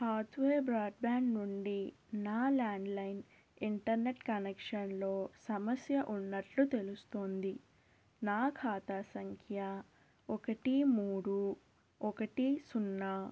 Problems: constant background noise, low volume